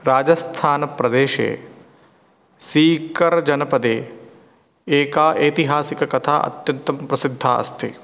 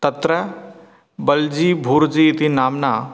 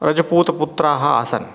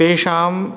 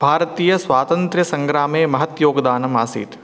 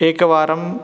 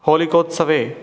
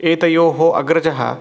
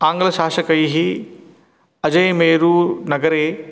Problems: none marked